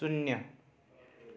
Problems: none marked